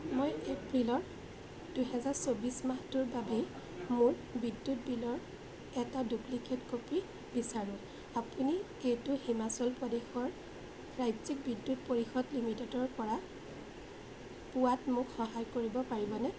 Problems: constant background noise, background conversations at intervals